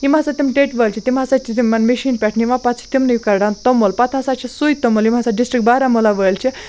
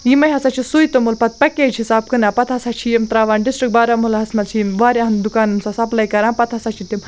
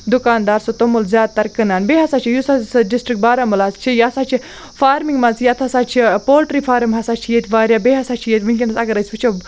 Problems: none marked